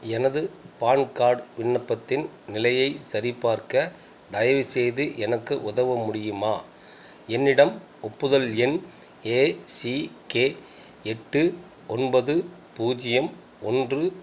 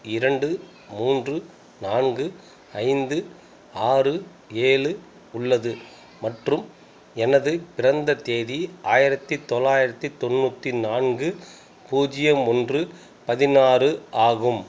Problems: constant background noise